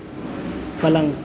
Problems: constant background noise